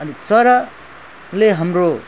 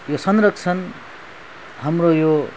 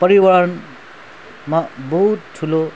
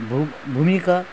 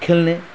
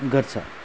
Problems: background sounds at intervals